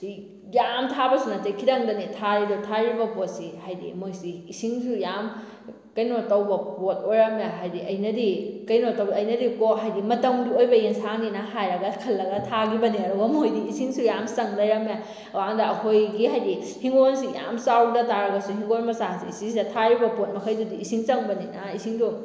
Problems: none marked